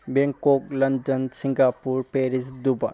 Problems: none marked